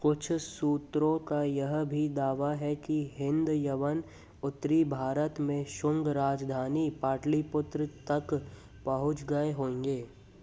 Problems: background sounds at intervals